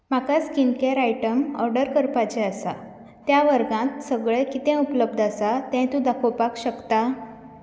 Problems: background sounds at intervals